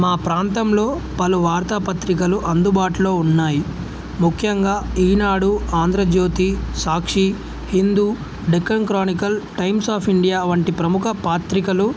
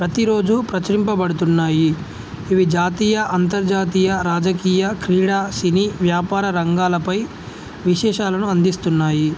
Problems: none marked